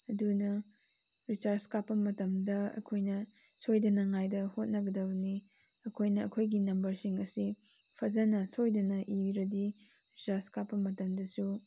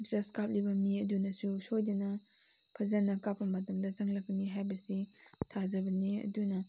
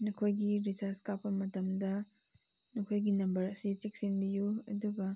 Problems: constant background noise